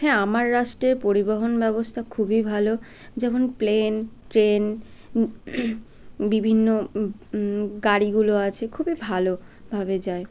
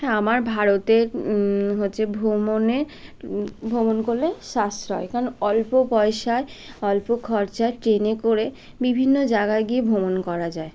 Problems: none marked